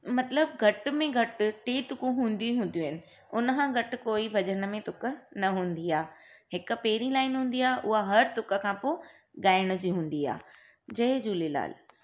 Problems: none marked